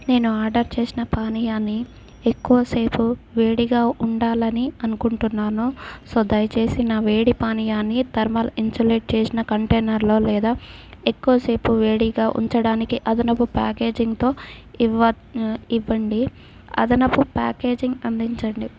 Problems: background sounds at intervals